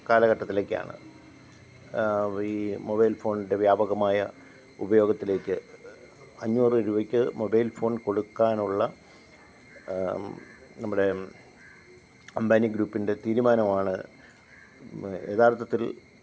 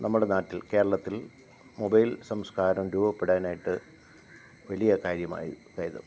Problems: low volume